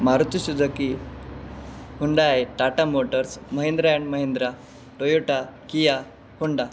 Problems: background sounds at intervals